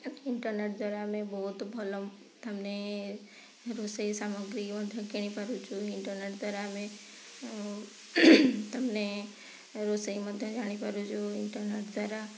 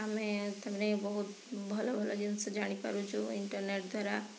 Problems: none marked